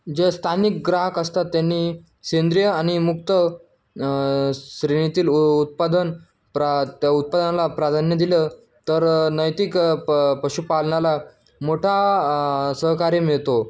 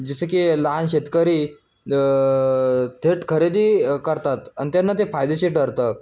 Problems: none marked